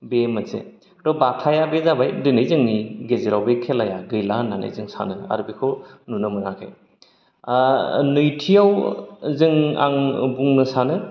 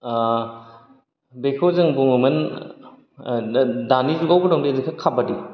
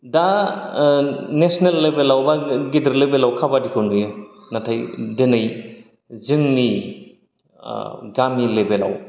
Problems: none marked